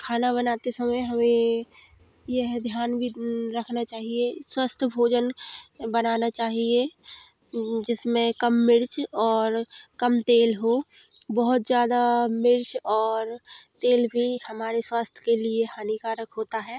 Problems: constant background noise